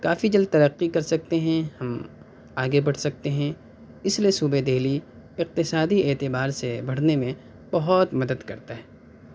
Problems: none marked